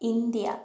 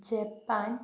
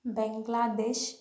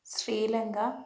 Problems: low volume